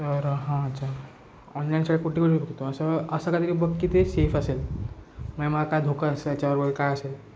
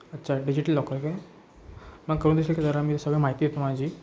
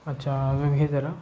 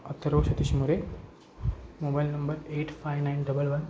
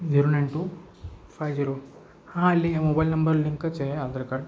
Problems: constant background noise, background conversations at intervals